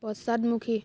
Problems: none marked